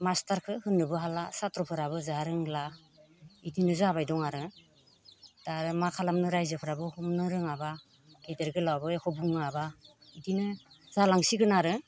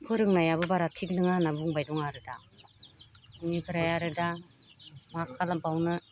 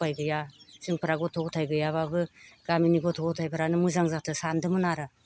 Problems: constant background noise